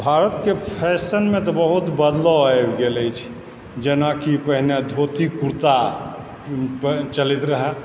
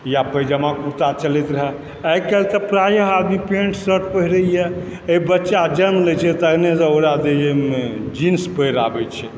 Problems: constant background noise